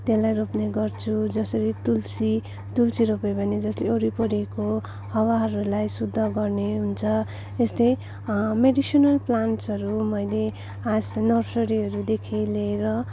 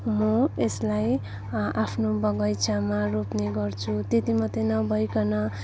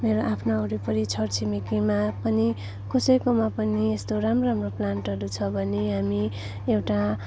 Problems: constant background noise